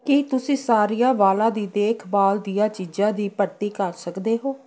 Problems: continuous background conversations